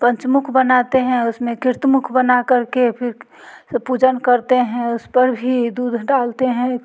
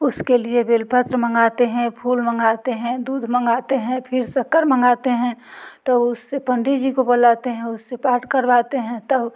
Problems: none marked